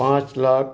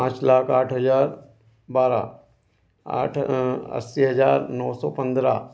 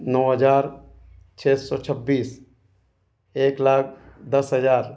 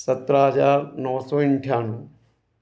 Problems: constant background noise